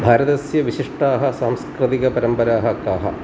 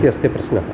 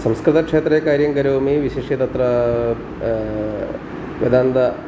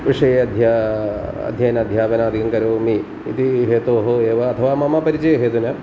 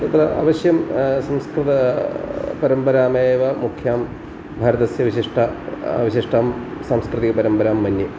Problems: constant background noise